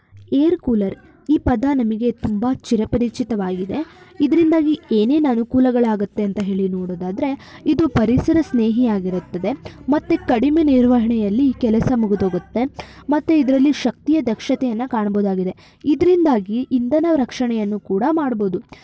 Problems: constant background noise